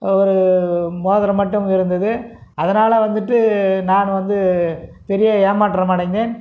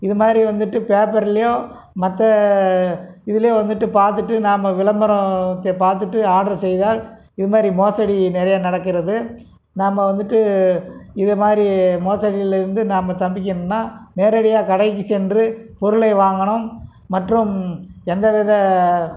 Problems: none marked